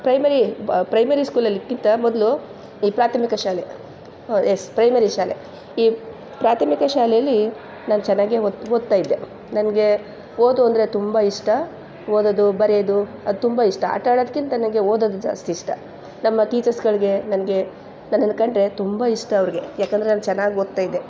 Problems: none marked